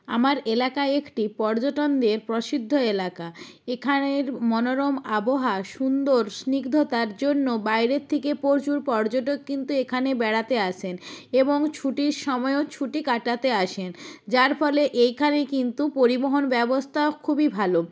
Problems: none marked